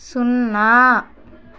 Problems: background sounds at intervals